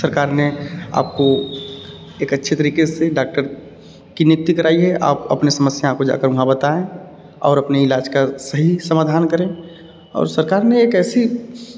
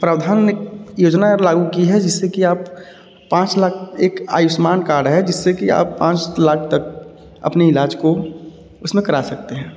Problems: none marked